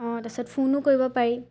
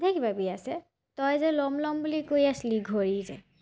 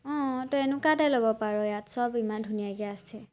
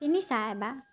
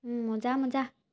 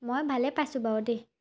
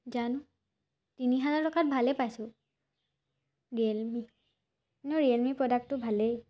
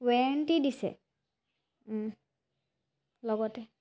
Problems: none marked